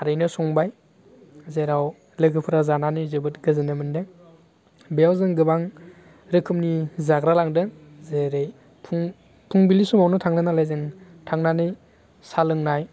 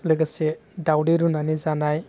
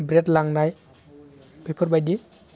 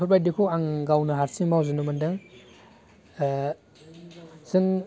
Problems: constant background noise